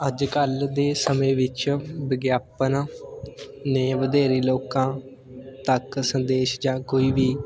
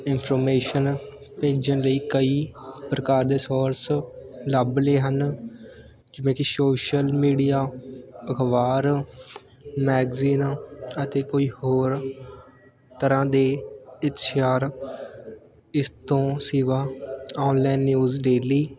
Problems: background sounds at intervals, continuous background conversations